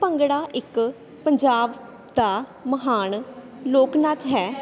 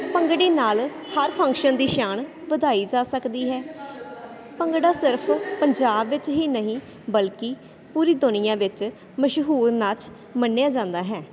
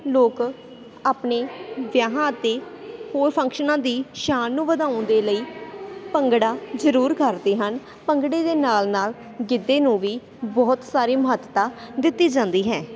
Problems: constant background noise